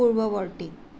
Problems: none marked